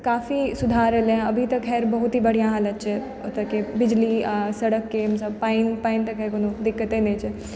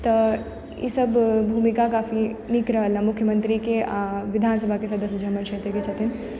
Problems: background sounds at intervals